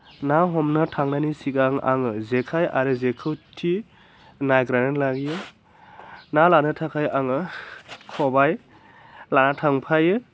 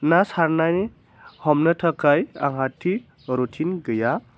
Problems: constant background noise